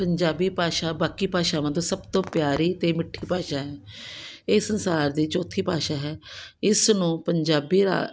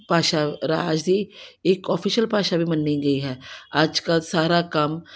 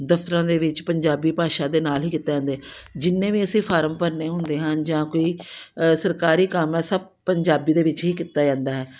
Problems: background sounds at intervals